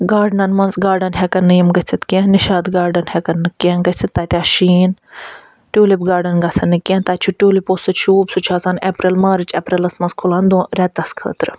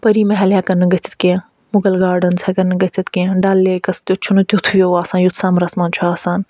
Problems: none marked